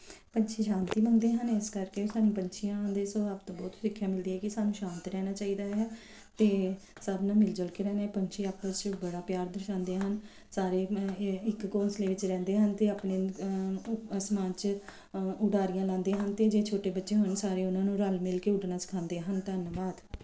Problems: background sounds at intervals